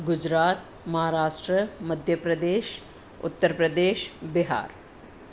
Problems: constant background noise